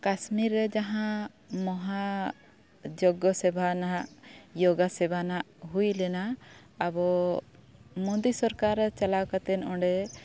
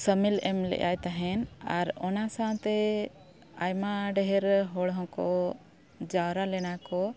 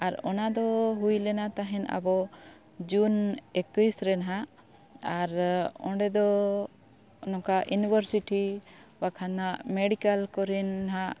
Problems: none marked